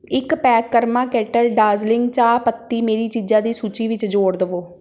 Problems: background sounds at intervals